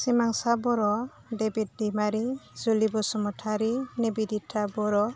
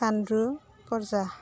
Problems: constant background noise